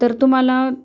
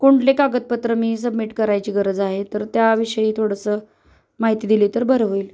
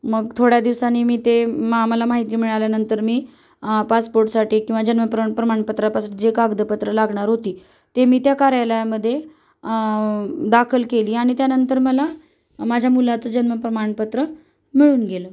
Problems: none marked